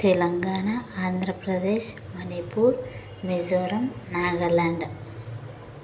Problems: none marked